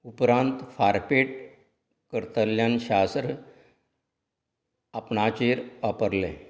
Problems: background conversations at intervals